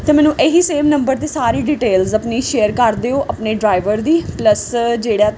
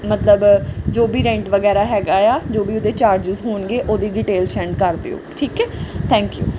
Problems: background sounds at intervals